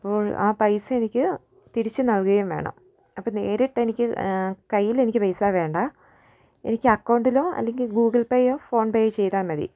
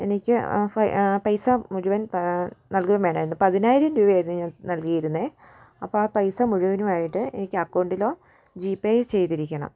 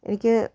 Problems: background sounds at intervals